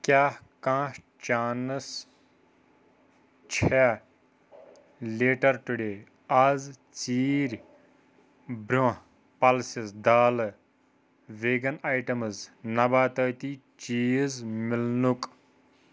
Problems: none marked